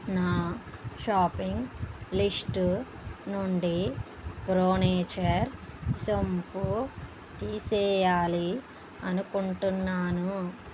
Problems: background sounds at intervals